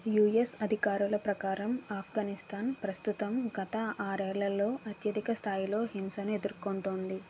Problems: constant background noise